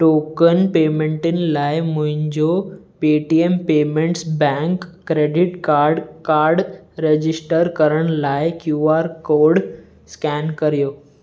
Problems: none marked